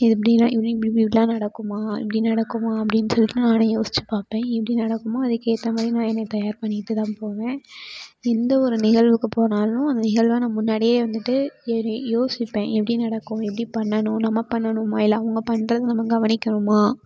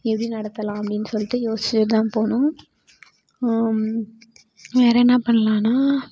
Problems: background sounds at intervals